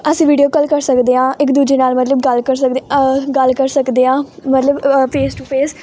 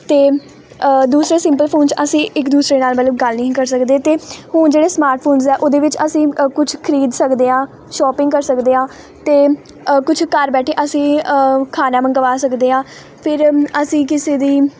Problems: none marked